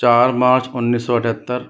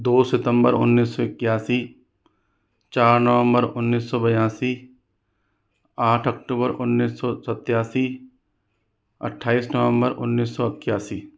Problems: none marked